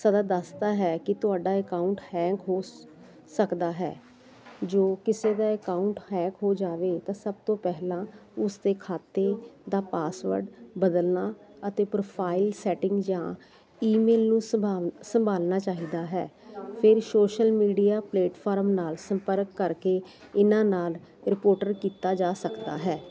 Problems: none marked